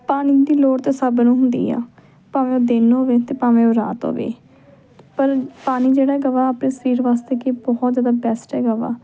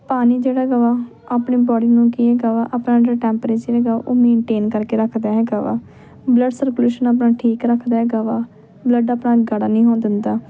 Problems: background conversations at intervals